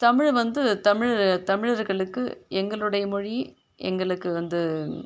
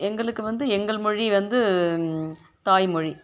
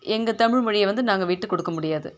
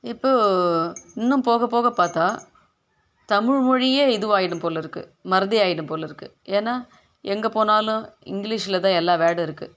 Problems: constant background noise